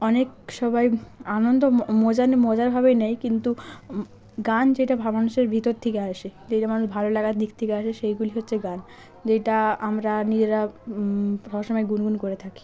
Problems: none marked